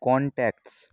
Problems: constant background noise